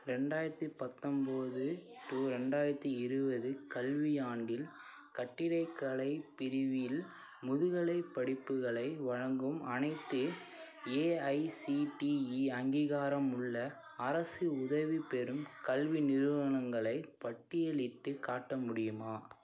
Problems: continuous background conversations